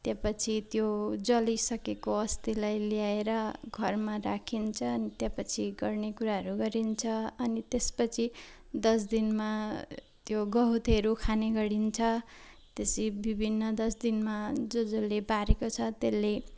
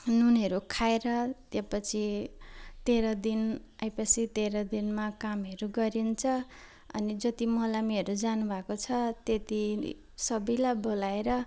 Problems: background sounds at intervals